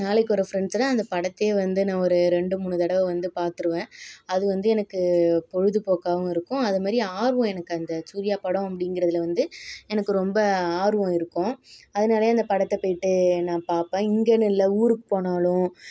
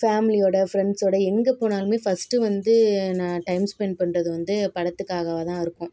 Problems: background sounds at intervals